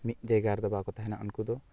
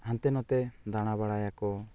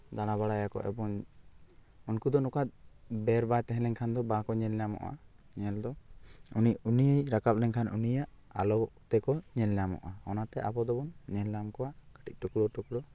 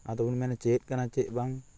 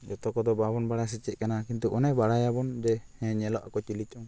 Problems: constant background noise